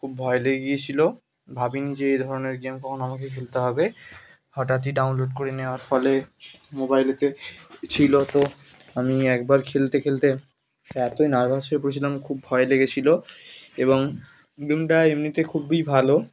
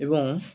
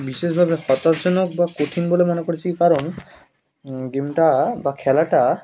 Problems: constant background noise